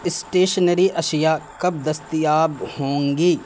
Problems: constant background noise